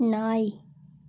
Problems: none marked